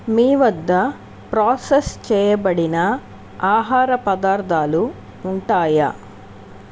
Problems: none marked